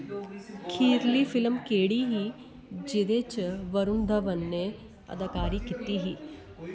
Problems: constant background noise